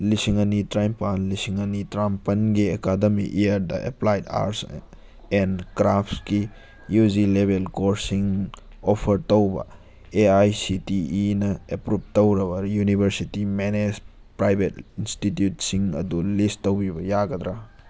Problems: none marked